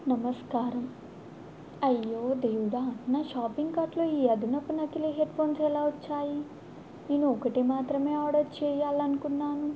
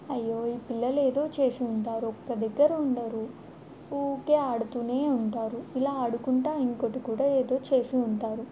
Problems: constant background noise